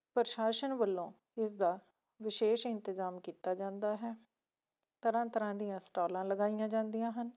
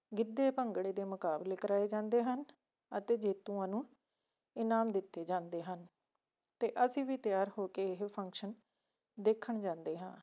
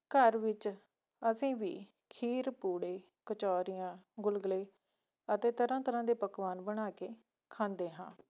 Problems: none marked